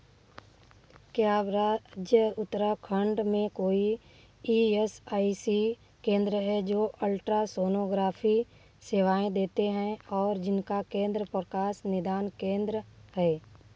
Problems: background sounds at intervals